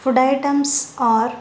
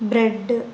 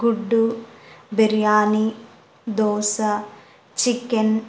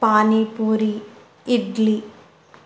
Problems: none marked